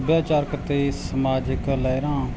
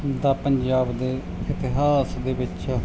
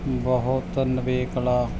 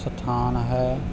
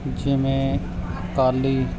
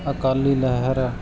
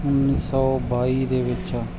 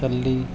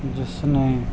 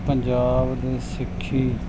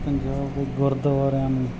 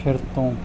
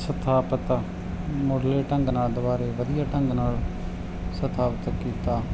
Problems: none marked